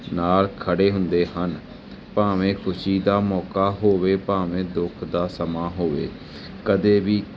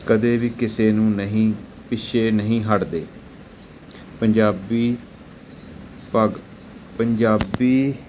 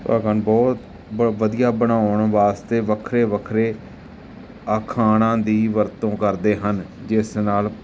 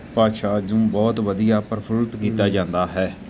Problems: background sounds at intervals, background conversations at intervals